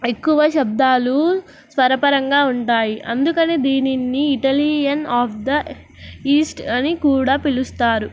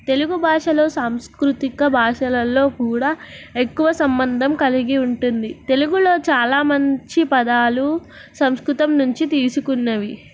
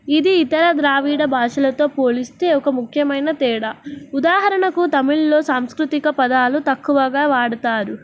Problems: none marked